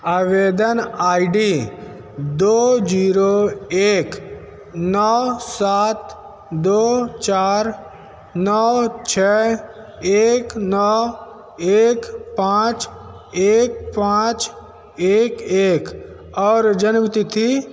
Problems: none marked